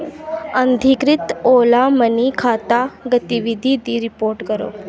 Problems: constant background noise